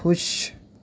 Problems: background sounds at intervals